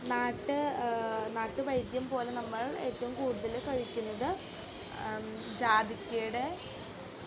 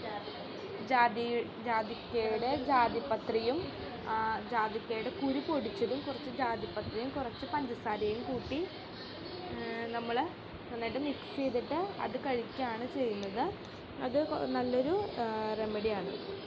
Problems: constant background noise, background conversations at intervals, low volume